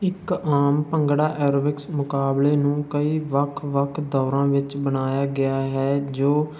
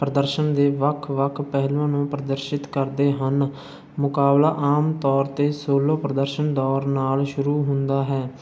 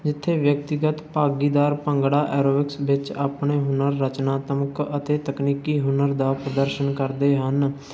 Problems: none marked